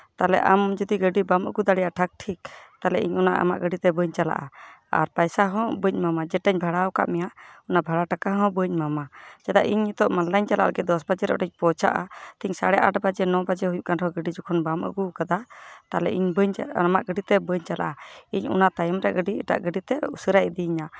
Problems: background sounds at intervals